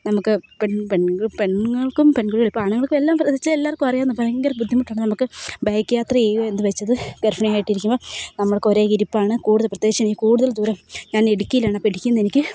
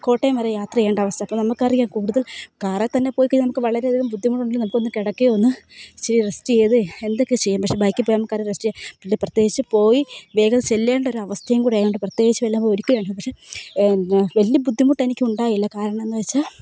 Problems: none marked